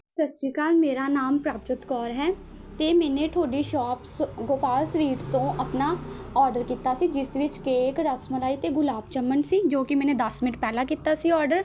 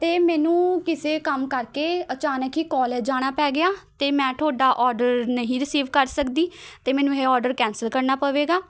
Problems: none marked